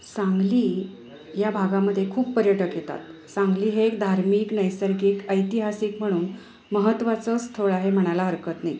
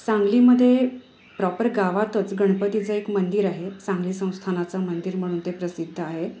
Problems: none marked